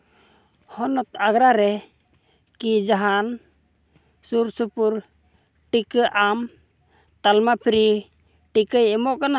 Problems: background sounds at intervals